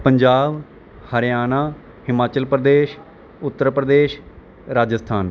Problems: none marked